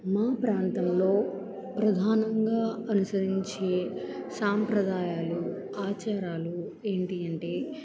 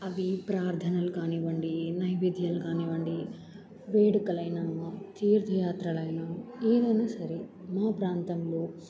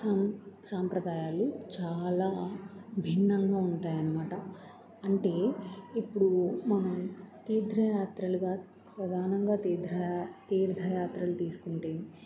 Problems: background conversations at intervals